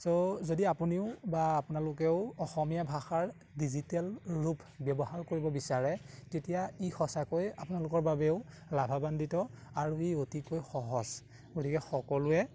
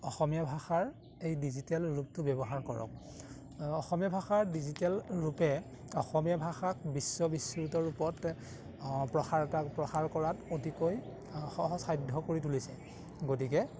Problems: background sounds at intervals